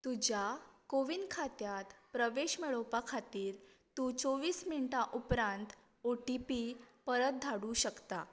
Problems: none marked